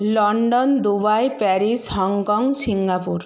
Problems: none marked